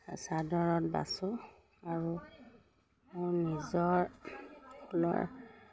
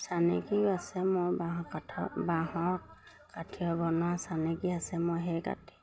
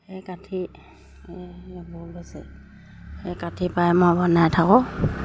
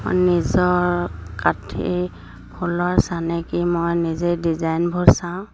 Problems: none marked